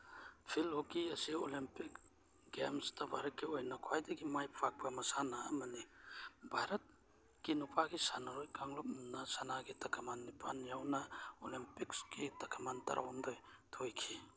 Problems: background sounds at intervals